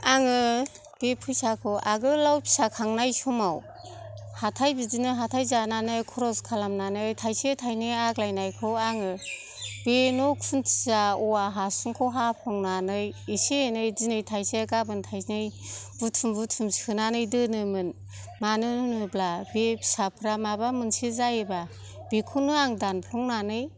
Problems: background sounds at intervals